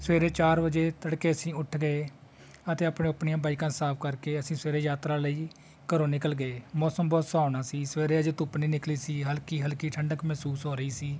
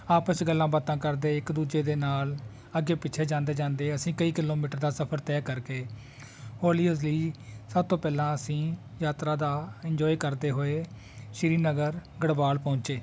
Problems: constant background noise, continuous background conversations